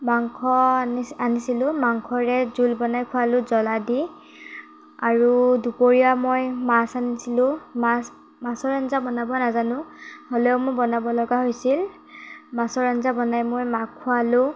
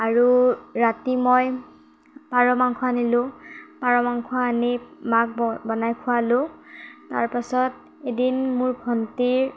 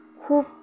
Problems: background sounds at intervals